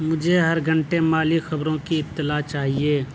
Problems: none marked